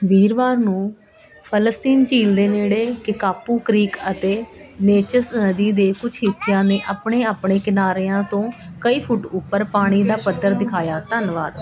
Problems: constant background noise, continuous background conversations